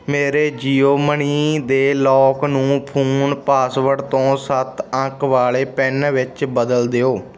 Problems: none marked